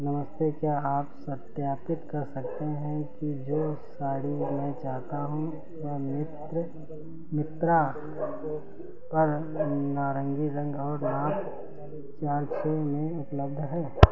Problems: none marked